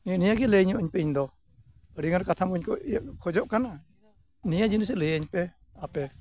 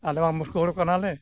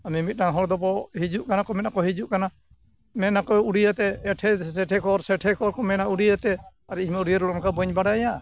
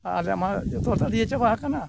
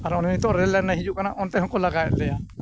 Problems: background sounds at intervals